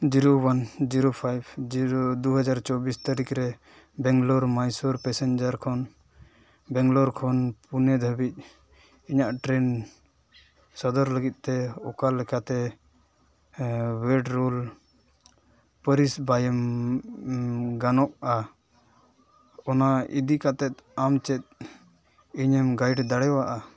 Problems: background sounds at intervals